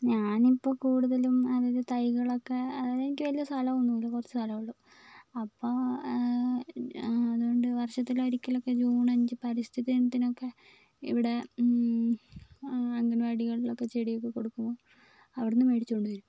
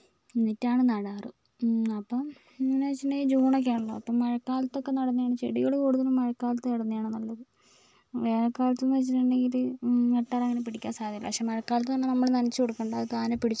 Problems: low volume